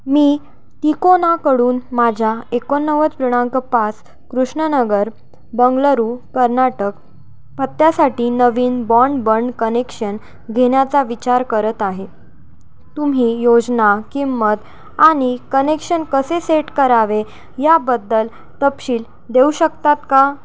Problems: constant background noise